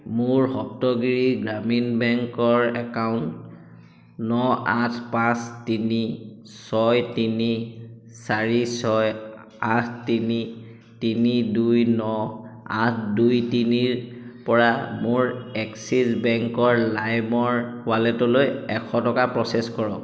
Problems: echo